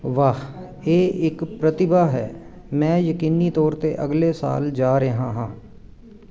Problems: none marked